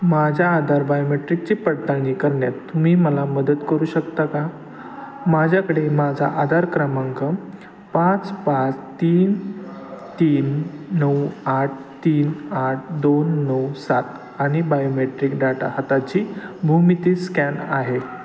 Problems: constant background noise, continuous background conversations